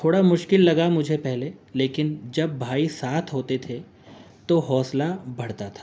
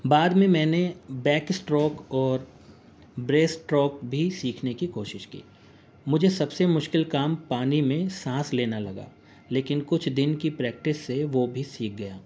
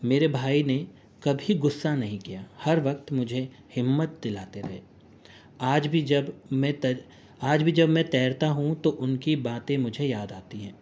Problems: constant background noise